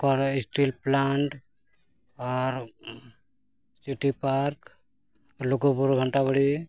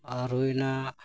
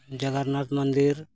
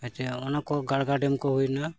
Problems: background sounds at intervals